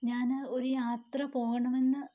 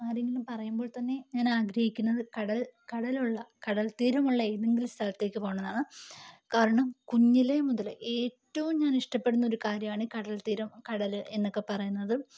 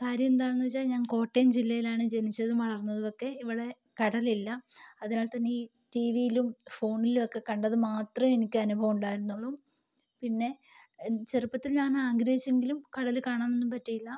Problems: low volume